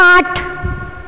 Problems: echo